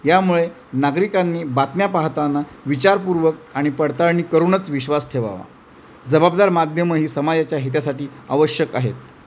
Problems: none marked